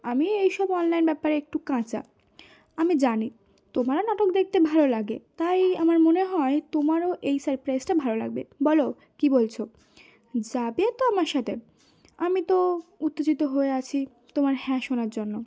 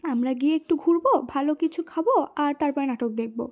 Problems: background sounds at intervals